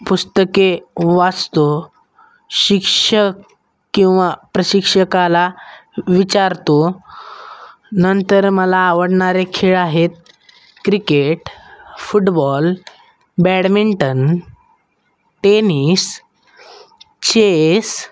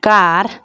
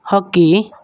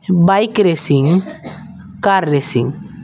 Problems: background sounds at intervals